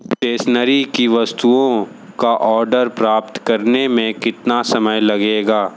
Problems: constant background noise